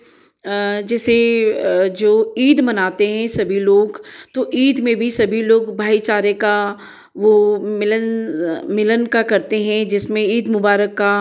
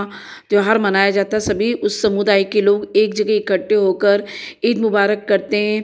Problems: echo